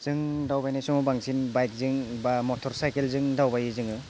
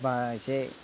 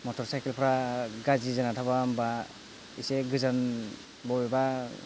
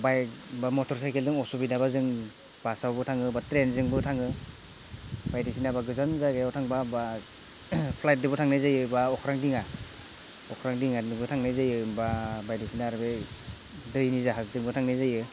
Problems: none marked